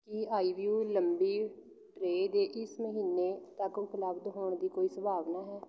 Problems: continuous background conversations